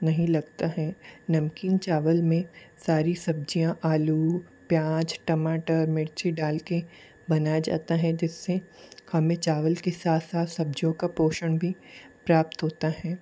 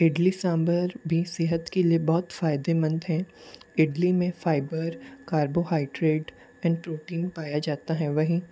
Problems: constant background noise